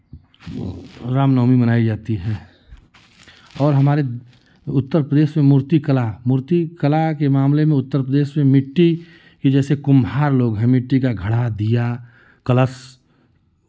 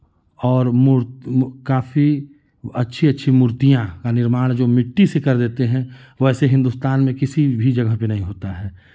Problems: constant background noise, continuous background conversations